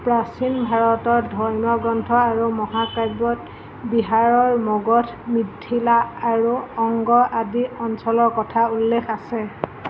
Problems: none marked